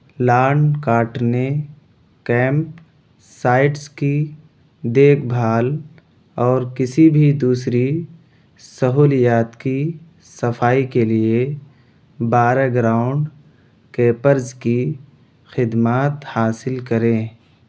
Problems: none marked